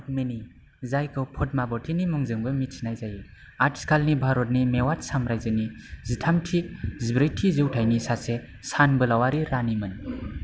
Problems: background sounds at intervals